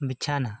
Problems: none marked